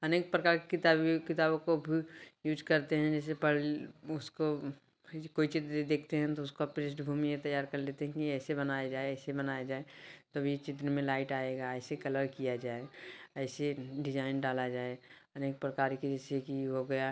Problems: background sounds at intervals